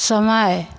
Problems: constant background noise, echo